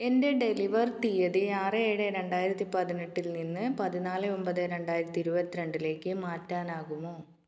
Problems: none marked